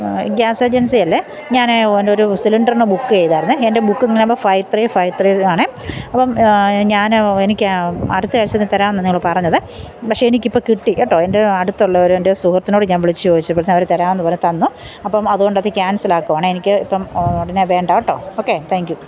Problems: constant background noise, background conversations at intervals